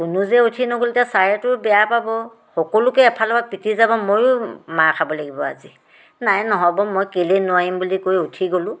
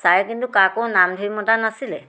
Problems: background sounds at intervals